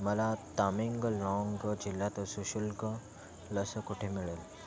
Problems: none marked